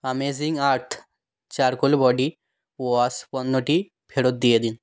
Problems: none marked